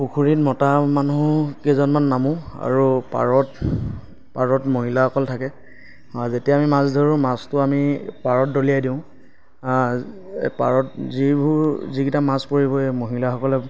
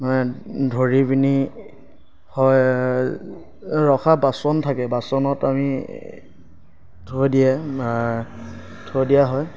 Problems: none marked